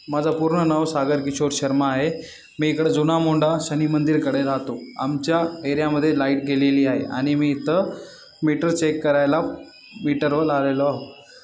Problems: none marked